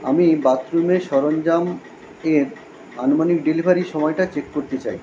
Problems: constant background noise